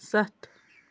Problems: none marked